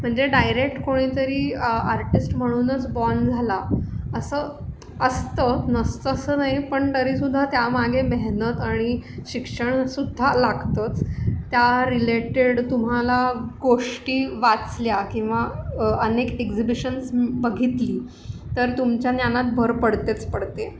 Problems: constant background noise